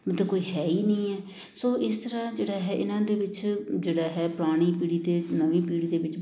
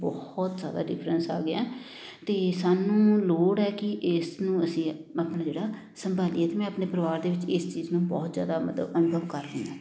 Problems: constant background noise